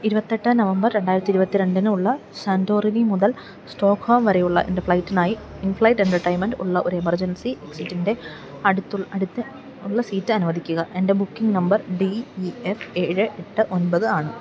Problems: none marked